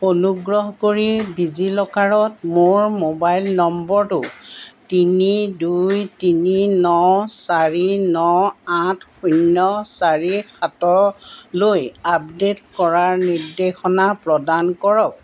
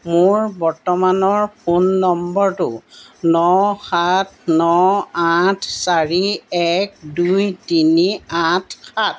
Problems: background sounds at intervals